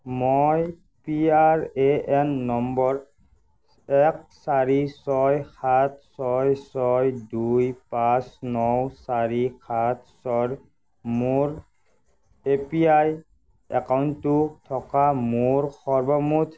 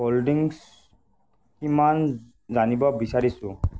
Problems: constant background noise